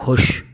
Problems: none marked